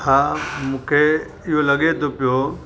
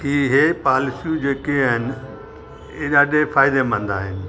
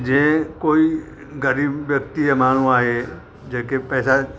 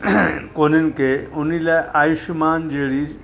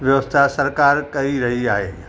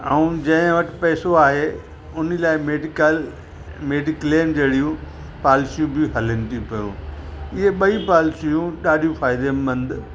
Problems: constant background noise